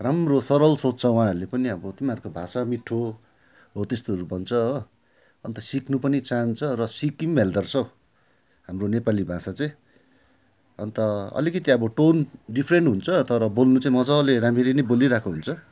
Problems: background sounds at intervals